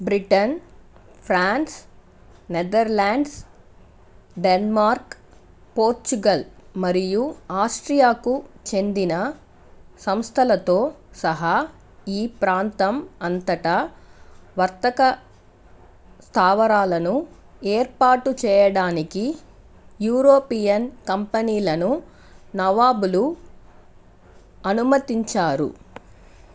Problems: constant background noise